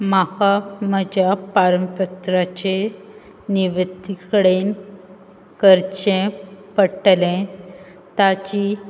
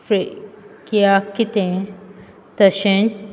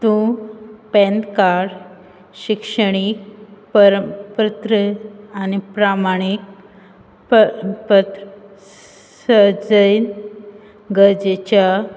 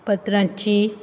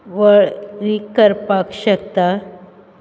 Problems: constant background noise